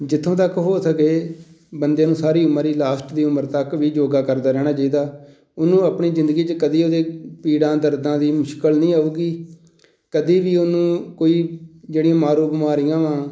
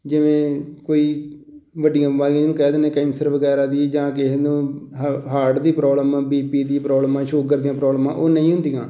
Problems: none marked